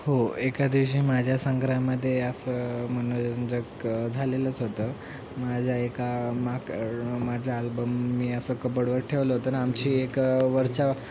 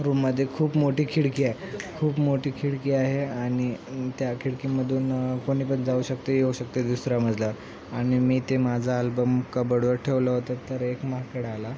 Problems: constant background noise